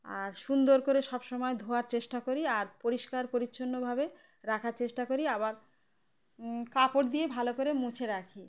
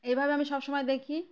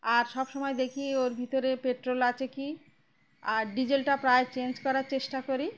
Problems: background sounds at intervals, background conversations at intervals